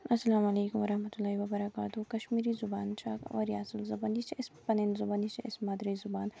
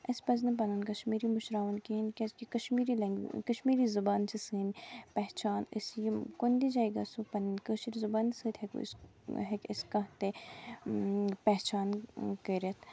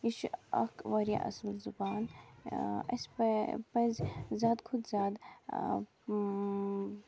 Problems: constant background noise